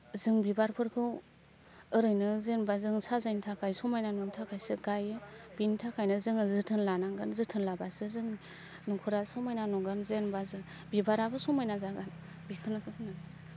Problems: none marked